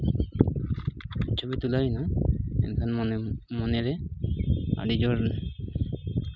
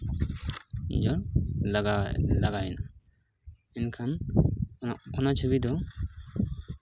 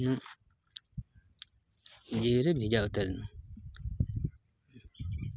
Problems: constant background noise